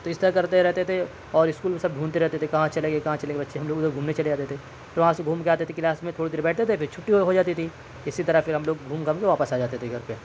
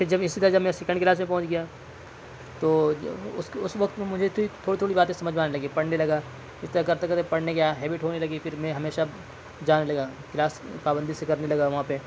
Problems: constant background noise